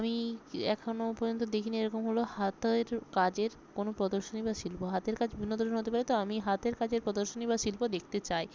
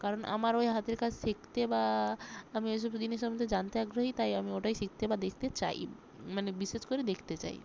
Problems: none marked